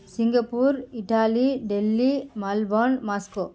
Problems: background sounds at intervals